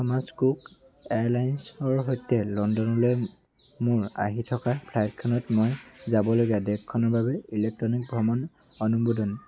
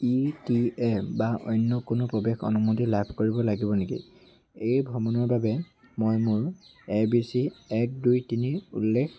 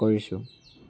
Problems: constant background noise